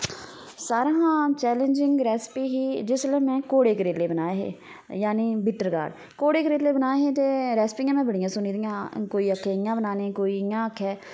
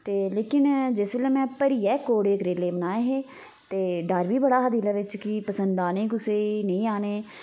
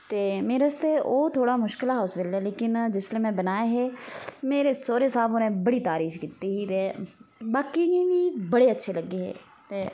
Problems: background sounds at intervals